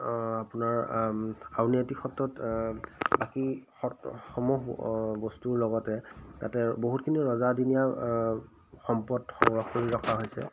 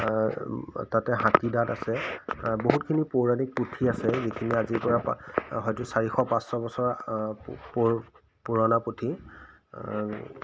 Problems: none marked